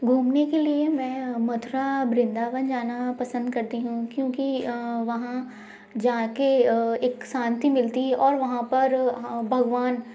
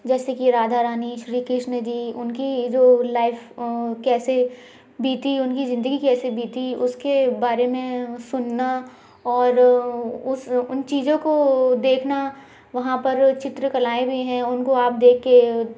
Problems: constant background noise